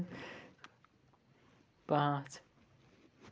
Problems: background conversations at intervals